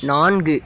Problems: background sounds at intervals